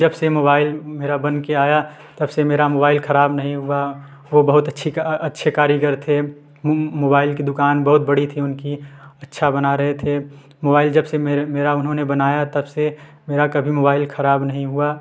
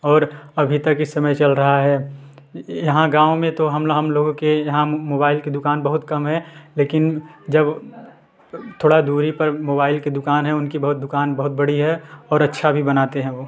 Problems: background sounds at intervals, background conversations at intervals